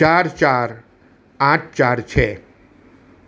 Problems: none marked